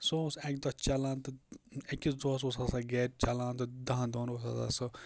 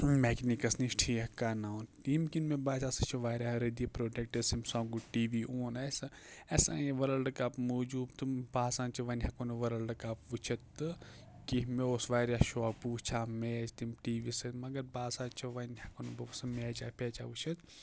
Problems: none marked